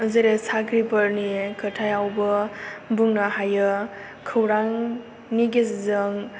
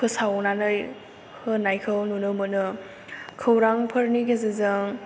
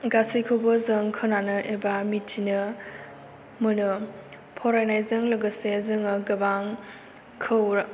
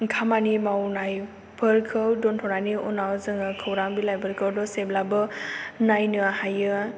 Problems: low volume